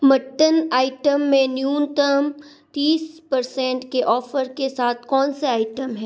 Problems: none marked